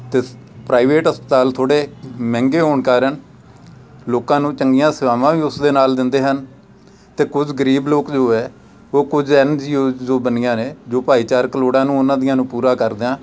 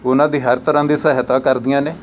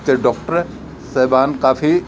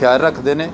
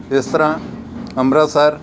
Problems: constant background noise, background conversations at intervals